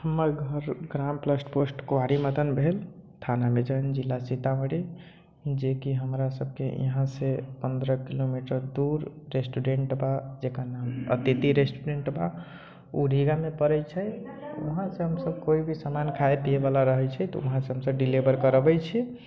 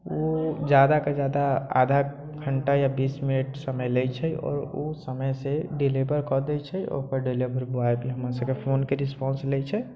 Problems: low volume